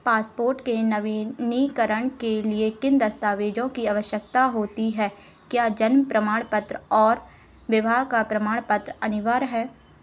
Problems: none marked